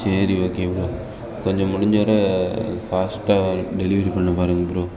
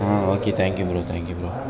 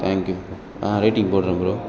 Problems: continuous background conversations